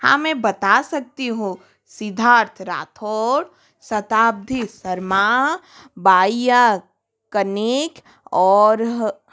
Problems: background sounds at intervals